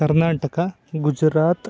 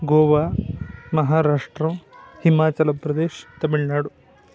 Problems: background sounds at intervals